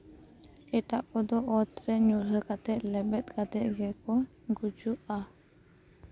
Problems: none marked